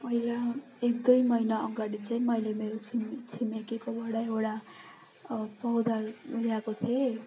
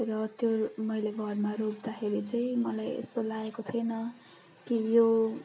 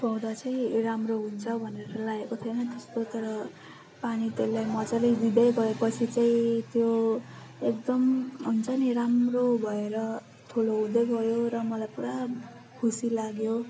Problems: constant background noise